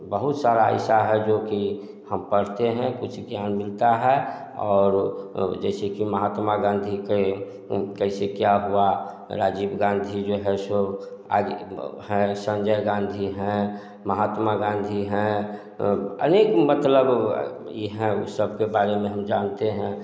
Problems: background sounds at intervals, echo